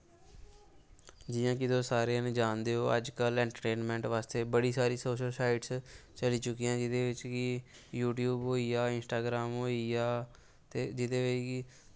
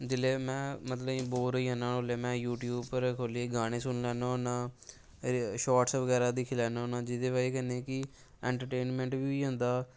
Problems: background sounds at intervals